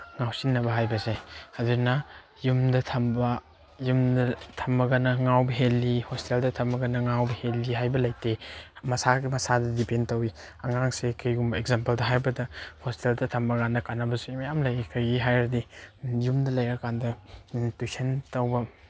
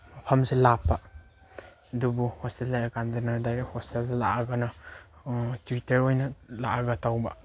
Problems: background sounds at intervals